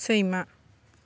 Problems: none marked